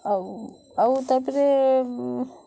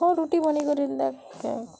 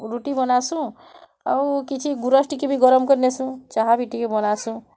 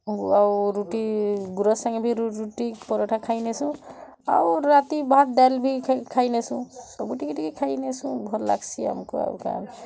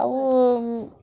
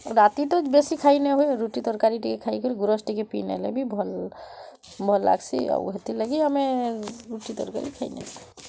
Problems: none marked